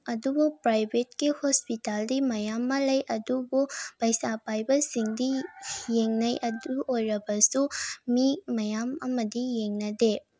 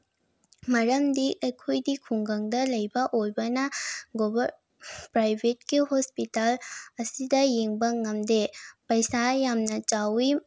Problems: background sounds at intervals